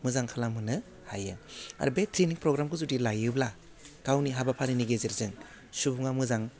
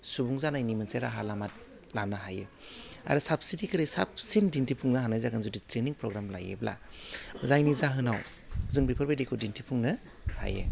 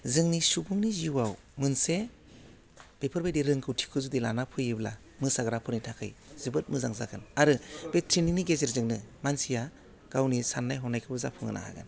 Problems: low volume